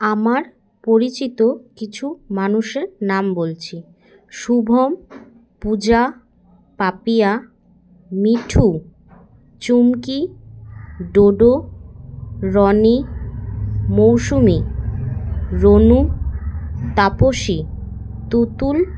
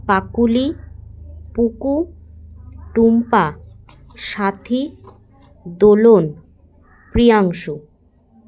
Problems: continuous background conversations